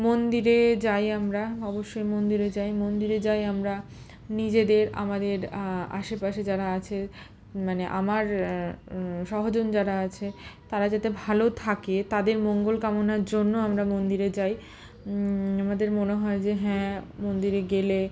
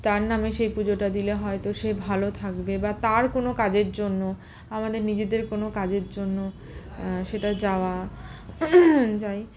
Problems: constant background noise, continuous background conversations